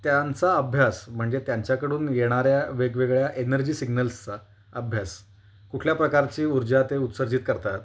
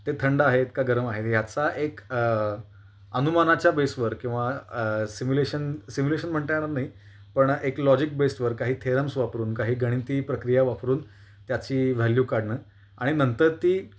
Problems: constant background noise, background conversations at intervals